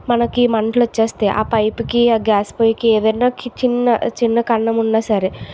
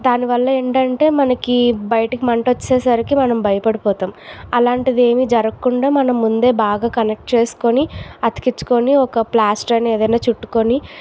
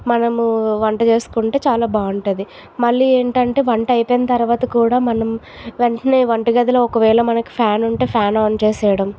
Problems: constant background noise